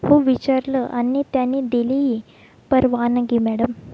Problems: background sounds at intervals